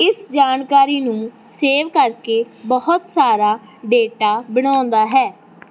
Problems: none marked